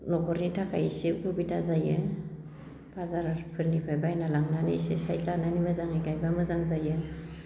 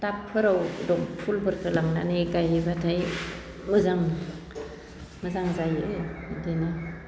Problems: none marked